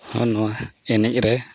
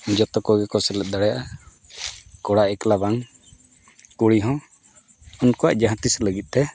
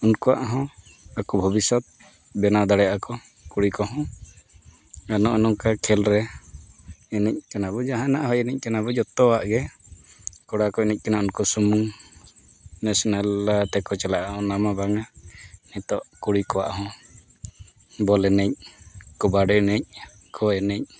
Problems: none marked